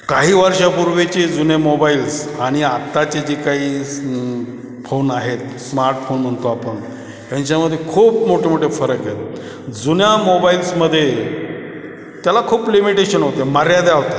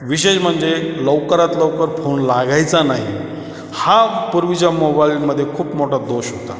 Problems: constant background noise, background conversations at intervals, echo